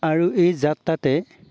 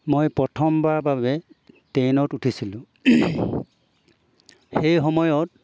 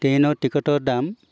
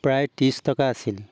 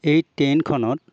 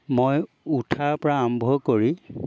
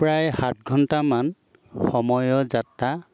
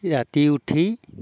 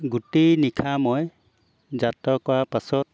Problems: background sounds at intervals